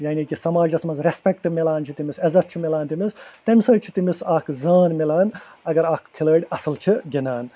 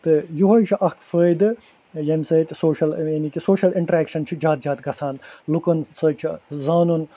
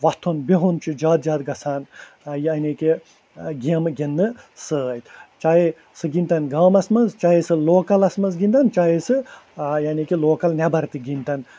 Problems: constant background noise